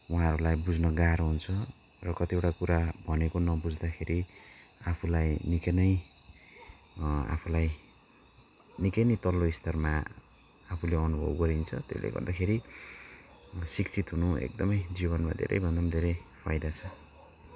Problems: background sounds at intervals